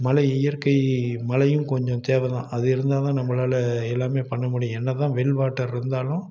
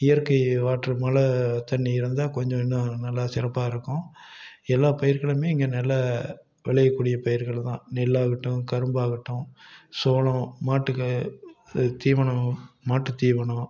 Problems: background sounds at intervals, continuous background conversations